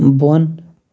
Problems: none marked